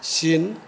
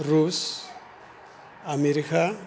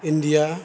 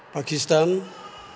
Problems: none marked